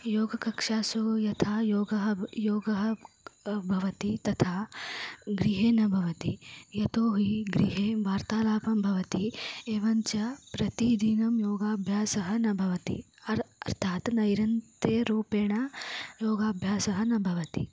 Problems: low volume